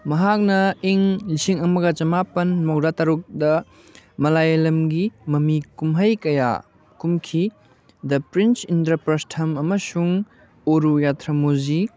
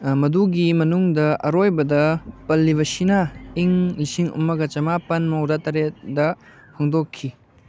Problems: none marked